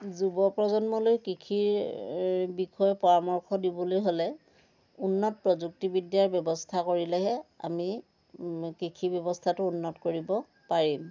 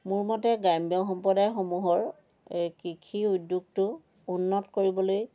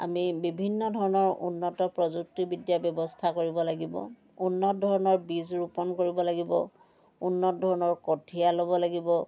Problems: constant background noise, background conversations at intervals